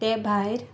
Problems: background sounds at intervals